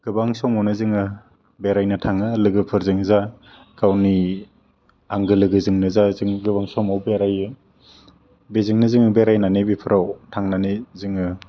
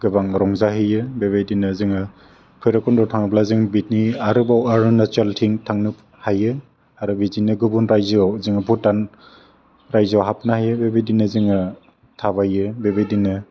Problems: low volume